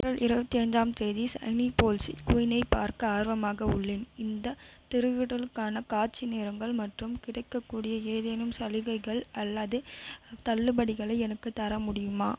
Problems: constant background noise